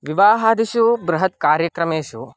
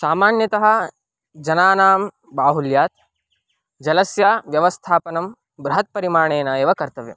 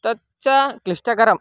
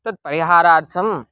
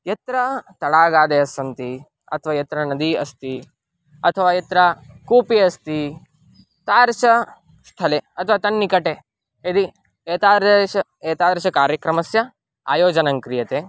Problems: background sounds at intervals